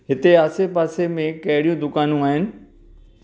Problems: none marked